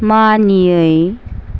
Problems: none marked